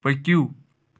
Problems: none marked